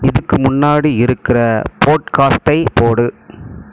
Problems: constant background noise